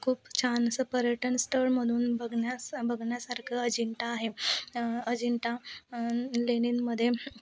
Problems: constant background noise, continuous background conversations